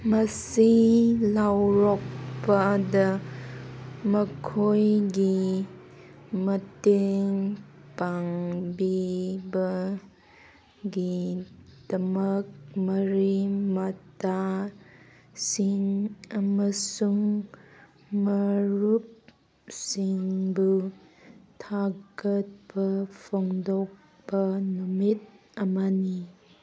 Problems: background sounds at intervals